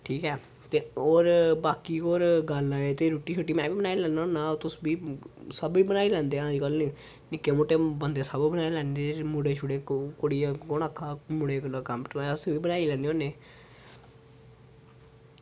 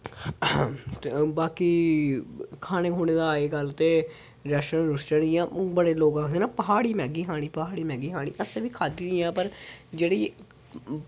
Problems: background sounds at intervals